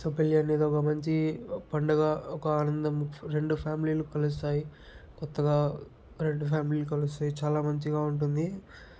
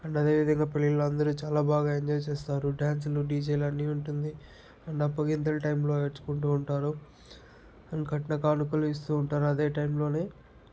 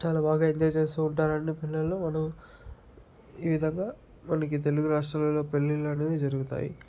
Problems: none marked